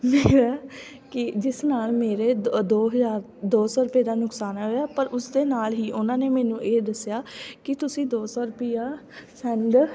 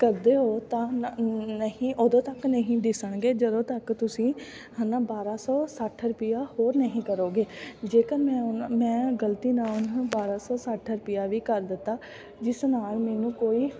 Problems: constant background noise